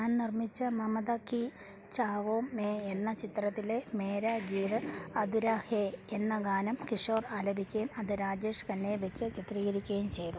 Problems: background sounds at intervals, low volume